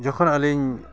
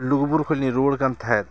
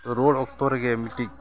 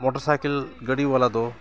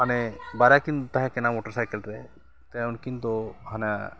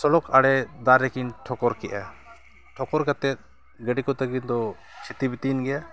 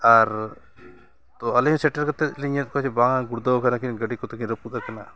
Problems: continuous background conversations